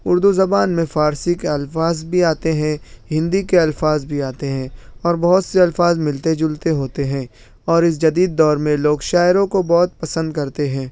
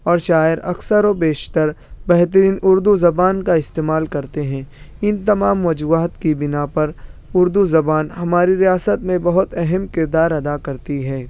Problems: none marked